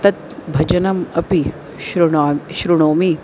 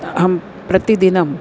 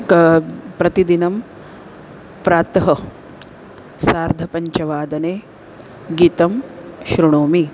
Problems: constant background noise